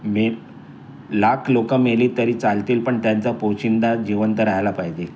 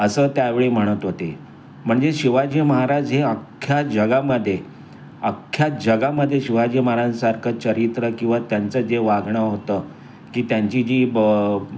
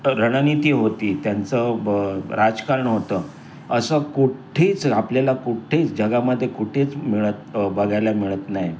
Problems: constant background noise, background conversations at intervals